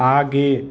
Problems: none marked